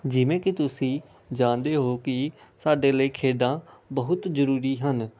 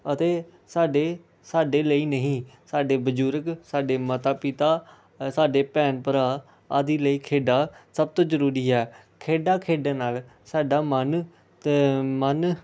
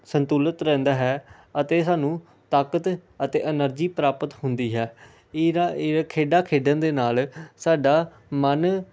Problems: none marked